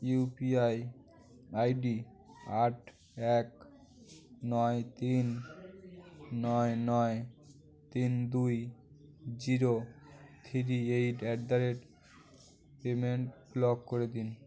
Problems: constant background noise